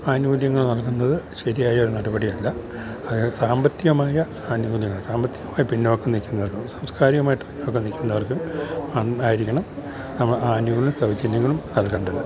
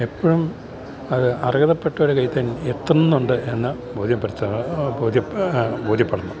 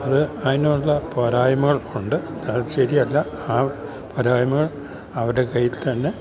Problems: background sounds at intervals